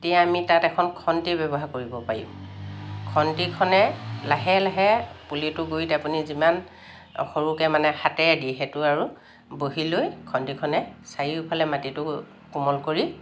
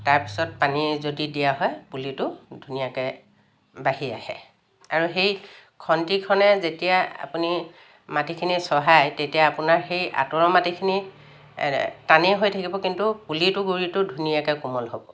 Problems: none marked